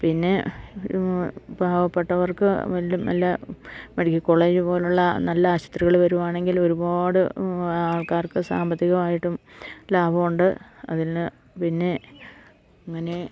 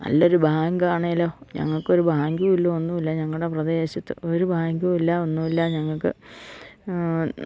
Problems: none marked